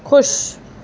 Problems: constant background noise